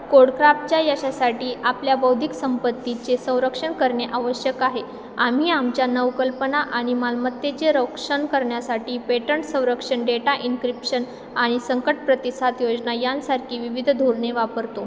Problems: none marked